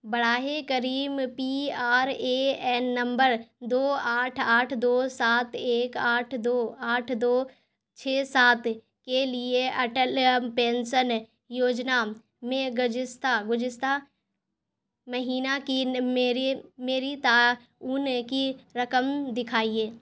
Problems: constant background noise